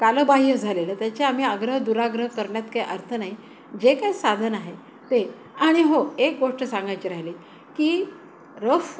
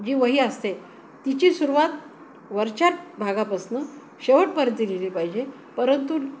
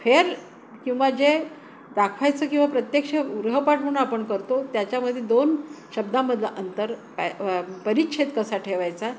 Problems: constant background noise